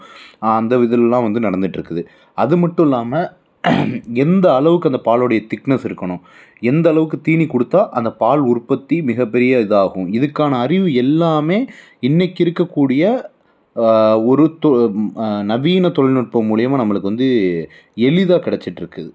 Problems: background sounds at intervals